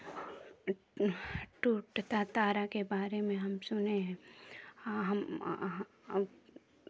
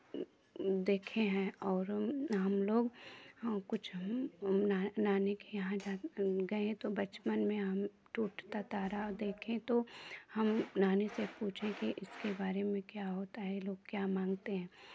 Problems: background sounds at intervals